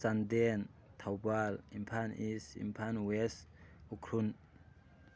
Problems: background sounds at intervals